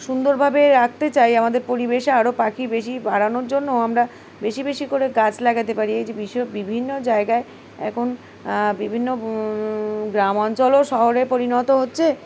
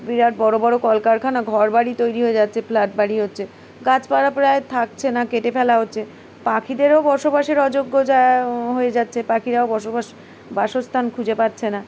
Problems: constant background noise